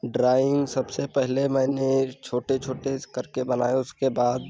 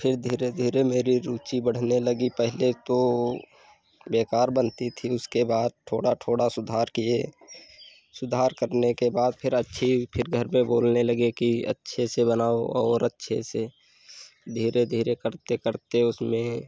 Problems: constant background noise